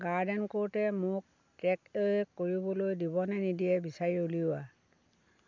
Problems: constant background noise